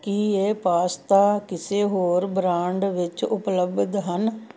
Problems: none marked